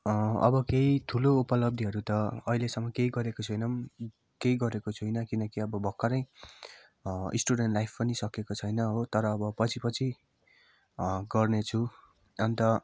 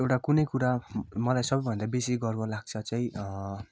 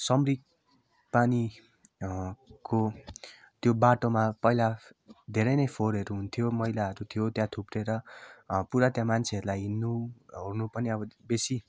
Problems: background sounds at intervals